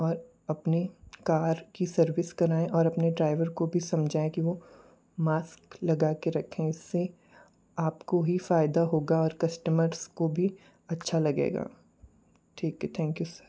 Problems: low volume